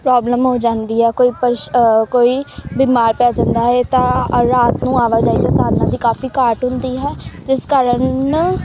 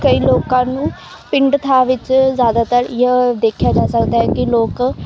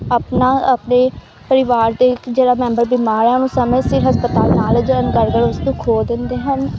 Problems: constant background noise